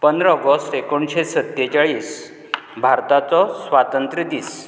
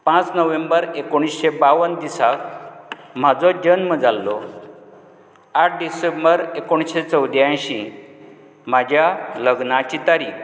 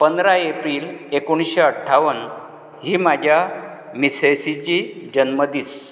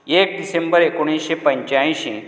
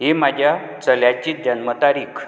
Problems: background conversations at intervals